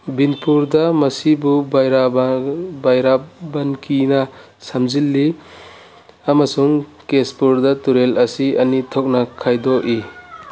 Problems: background sounds at intervals